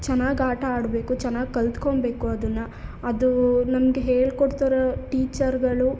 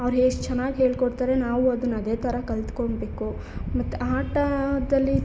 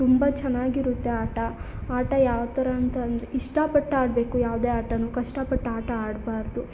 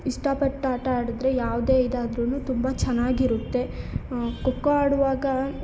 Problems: none marked